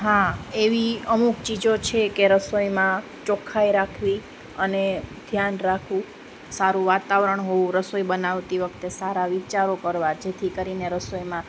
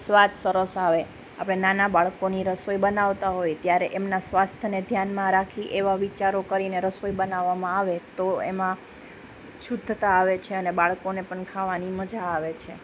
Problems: constant background noise